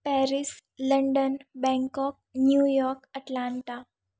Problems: none marked